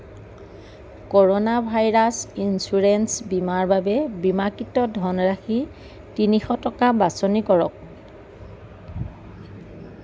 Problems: none marked